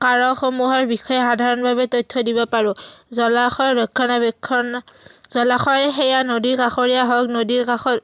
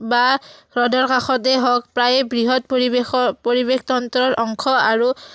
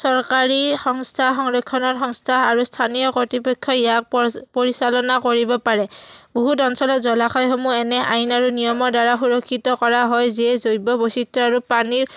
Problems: none marked